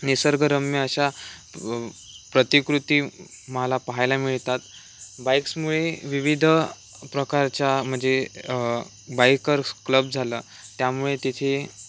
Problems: none marked